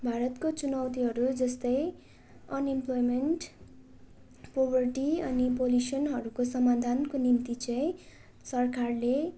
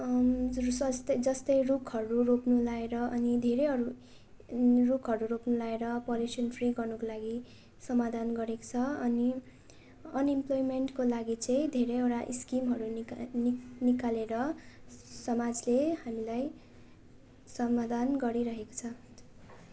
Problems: constant background noise